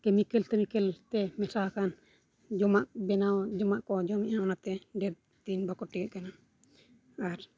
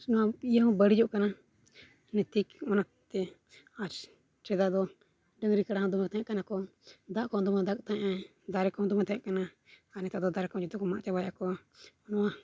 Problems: none marked